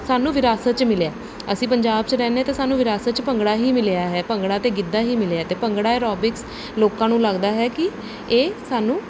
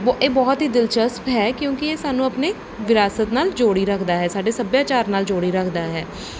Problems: none marked